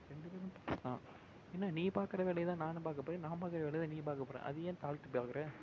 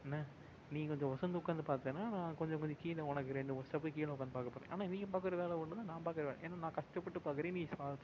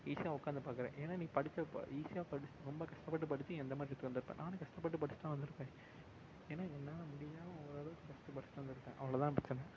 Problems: constant background noise, low volume